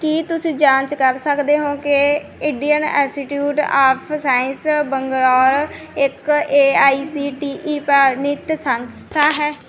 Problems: none marked